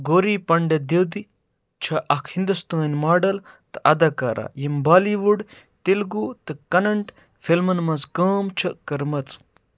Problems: none marked